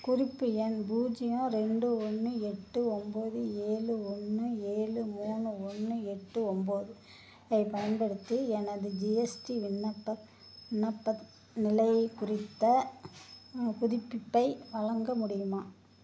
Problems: background sounds at intervals